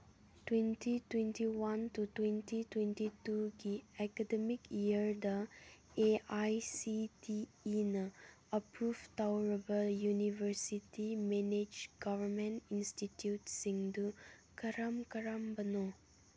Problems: none marked